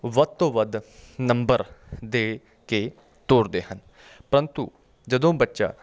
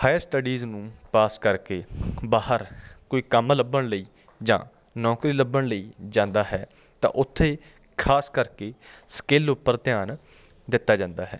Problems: none marked